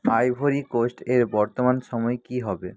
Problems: constant background noise